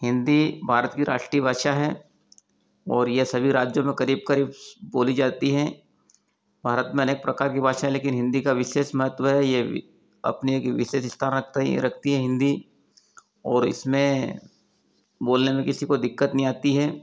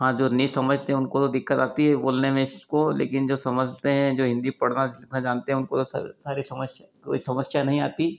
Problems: none marked